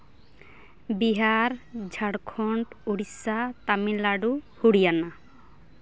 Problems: none marked